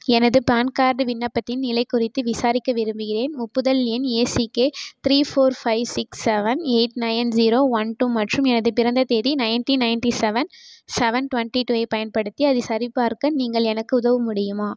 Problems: background sounds at intervals